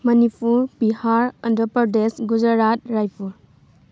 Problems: none marked